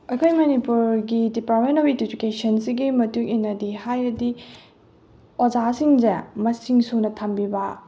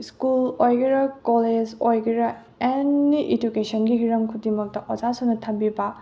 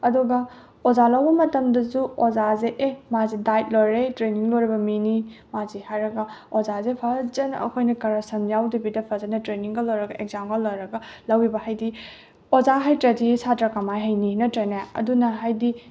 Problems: none marked